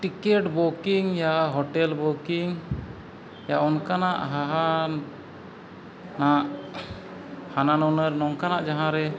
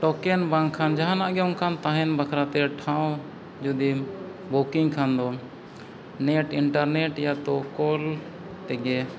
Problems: background sounds at intervals